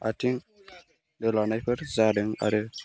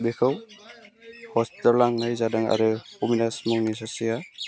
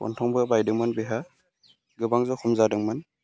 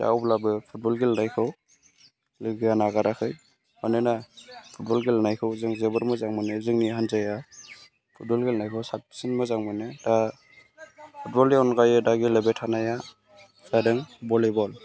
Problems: low volume